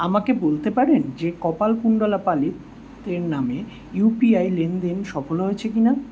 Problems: constant background noise